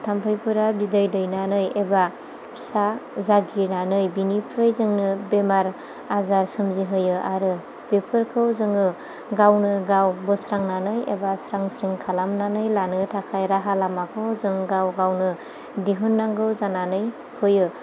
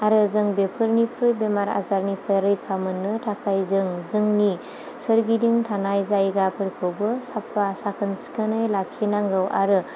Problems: none marked